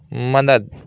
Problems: constant background noise